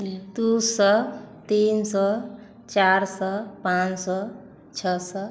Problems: constant background noise, continuous background conversations, echo